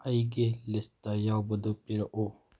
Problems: low volume